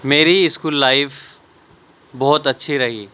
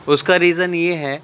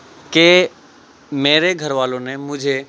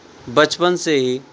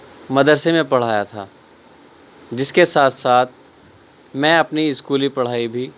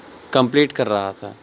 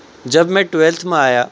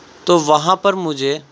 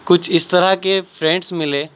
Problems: constant background noise